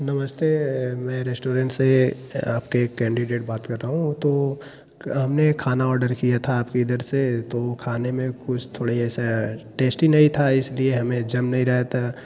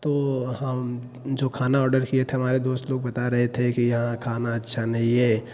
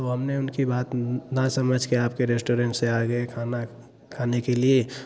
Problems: background sounds at intervals